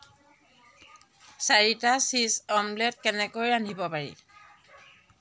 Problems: background sounds at intervals